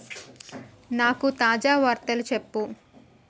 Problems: background sounds at intervals